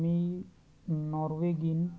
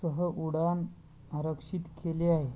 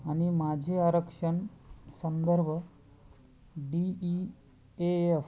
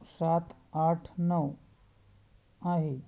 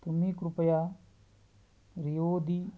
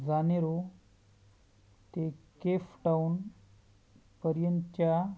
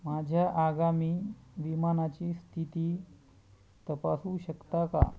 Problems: low volume